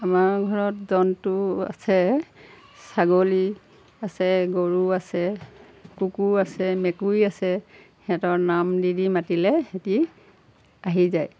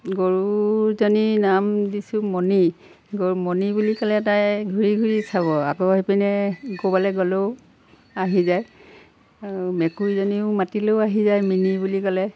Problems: background sounds at intervals